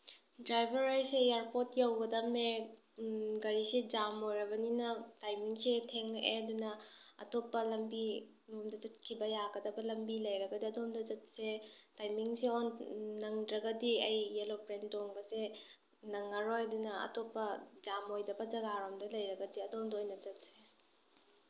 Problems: none marked